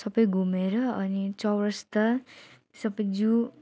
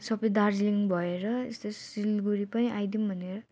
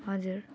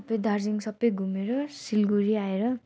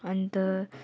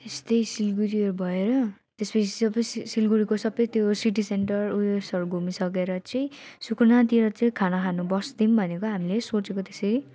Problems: none marked